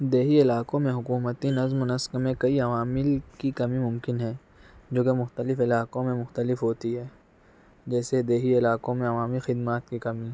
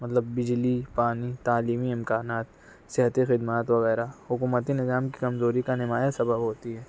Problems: none marked